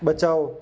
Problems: none marked